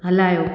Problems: echo